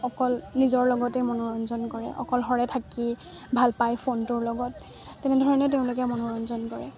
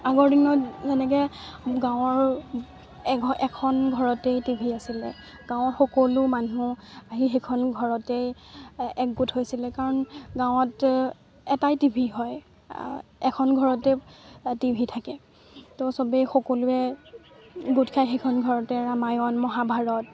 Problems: constant background noise, continuous background conversations